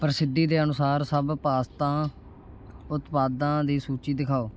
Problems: constant background noise